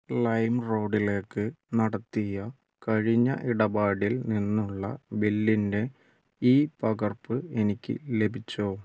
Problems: low volume